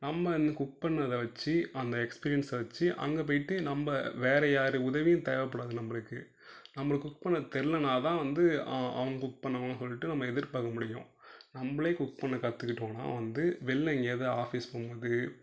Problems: low volume